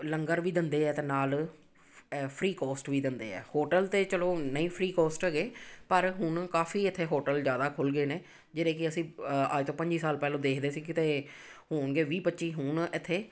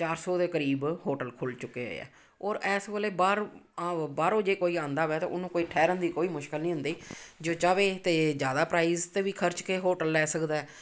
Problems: none marked